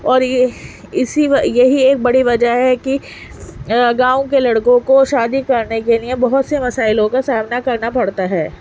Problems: constant background noise